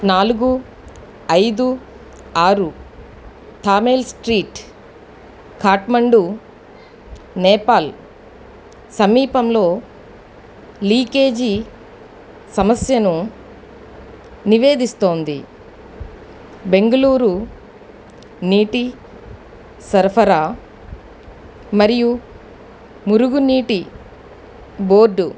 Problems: none marked